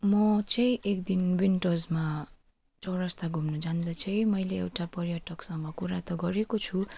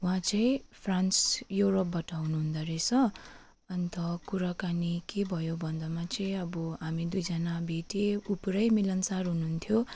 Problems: none marked